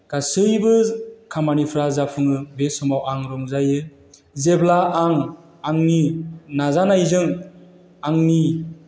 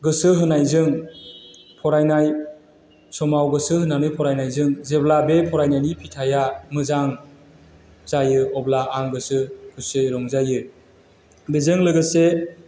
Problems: constant background noise